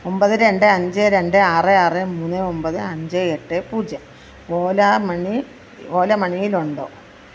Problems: constant background noise